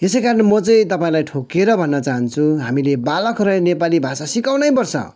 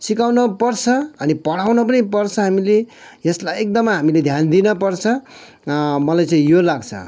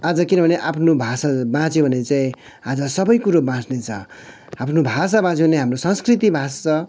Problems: none marked